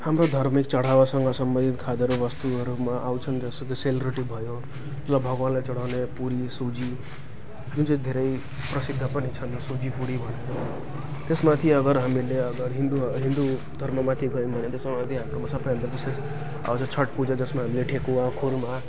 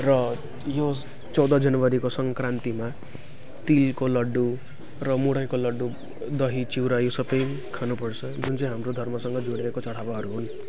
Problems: constant background noise, continuous background conversations